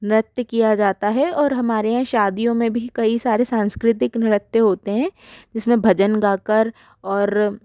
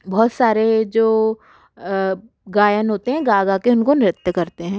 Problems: none marked